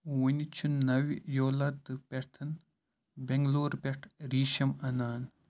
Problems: low volume